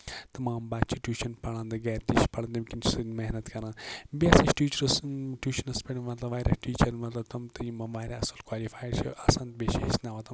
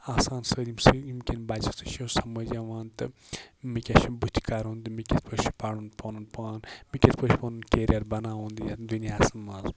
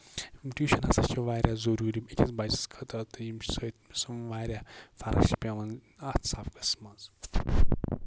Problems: constant background noise